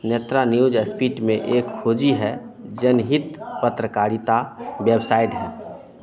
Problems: constant background noise